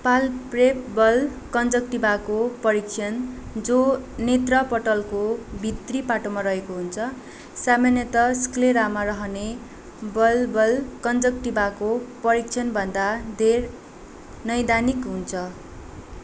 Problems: constant background noise